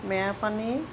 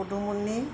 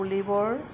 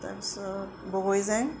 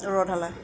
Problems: background sounds at intervals